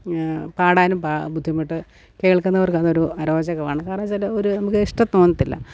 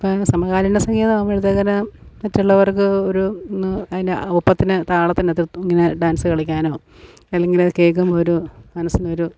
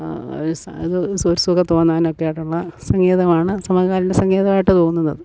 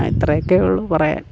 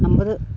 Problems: background sounds at intervals